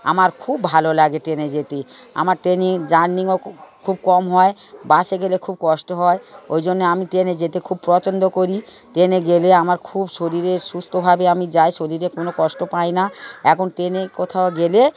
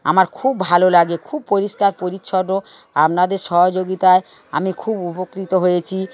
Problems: constant background noise